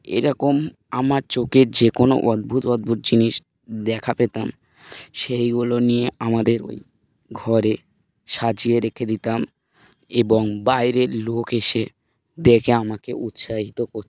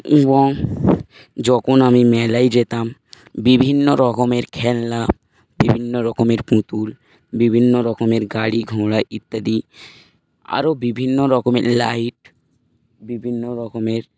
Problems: background sounds at intervals